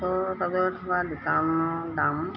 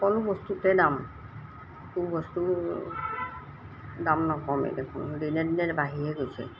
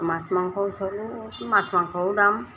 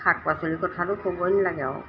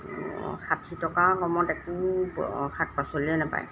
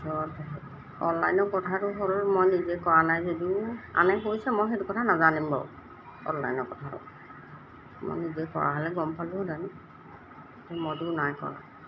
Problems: background sounds at intervals